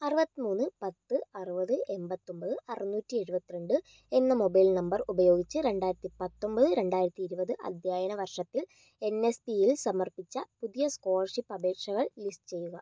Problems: low volume